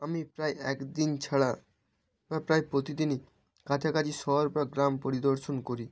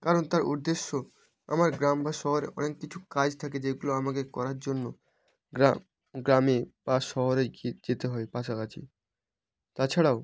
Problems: none marked